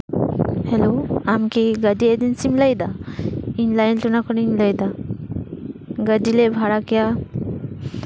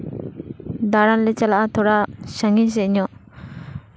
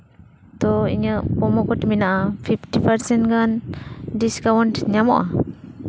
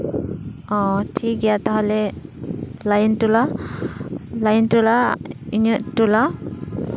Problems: none marked